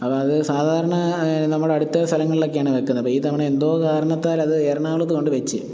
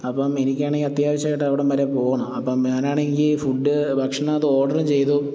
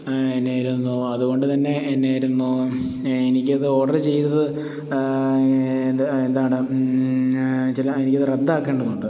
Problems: none marked